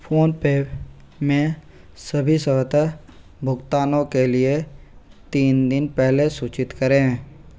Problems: constant background noise